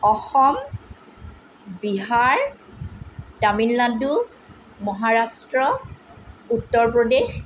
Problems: none marked